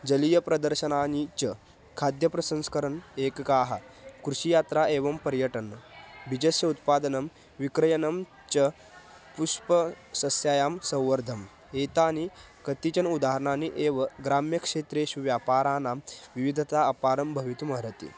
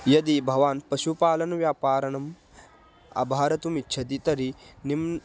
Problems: background sounds at intervals